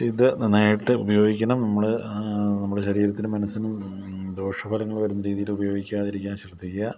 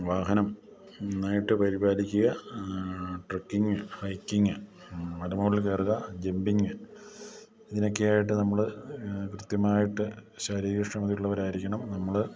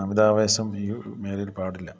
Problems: low volume